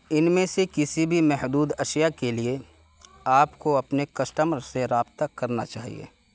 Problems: constant background noise